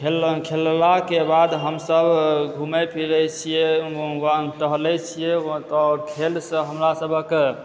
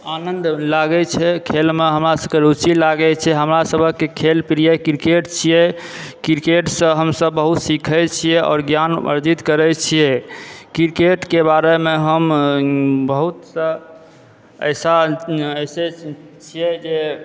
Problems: background sounds at intervals, background conversations at intervals